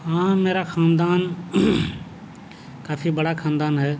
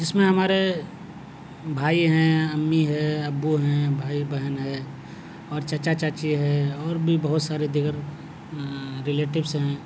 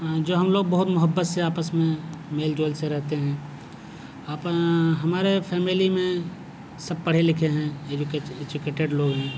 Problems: none marked